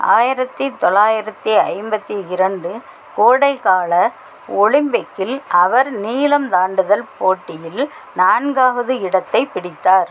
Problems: constant background noise